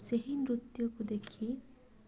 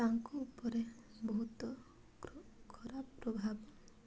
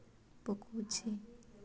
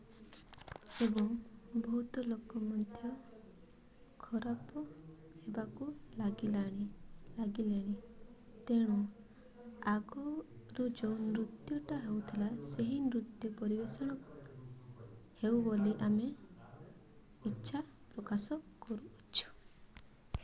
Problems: none marked